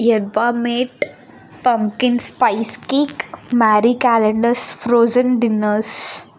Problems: none marked